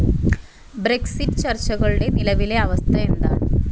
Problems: background sounds at intervals